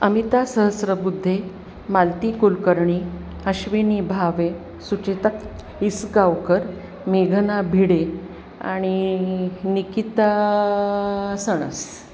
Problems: none marked